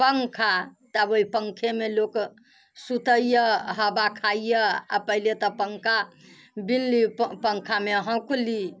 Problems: none marked